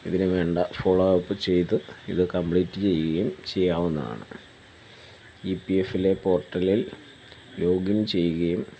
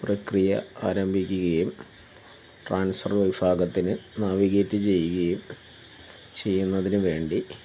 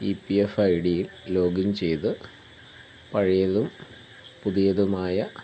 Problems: none marked